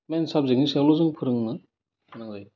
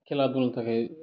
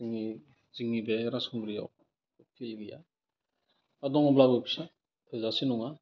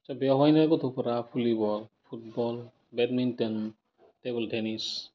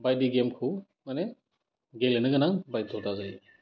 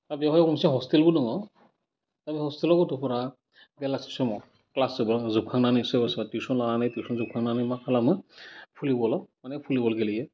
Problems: constant background noise